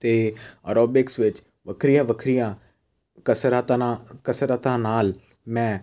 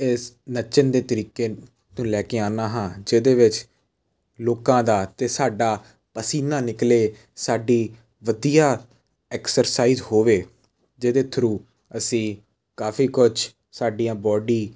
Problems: none marked